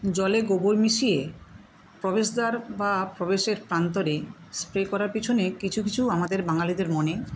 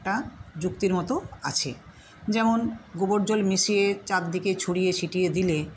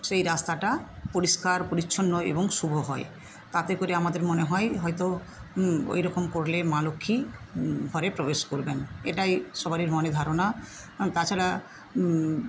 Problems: none marked